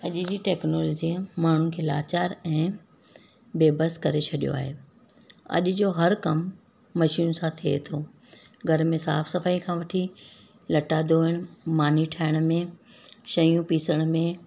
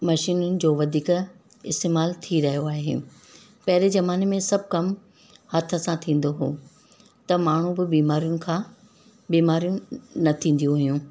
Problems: constant background noise